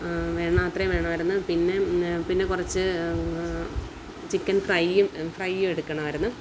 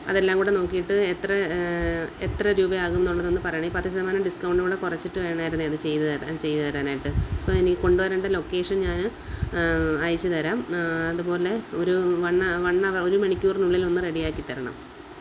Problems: constant background noise